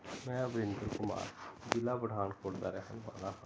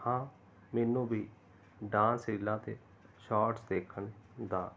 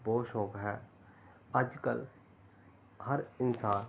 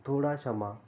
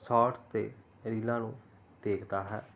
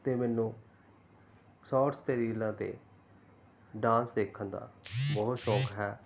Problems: none marked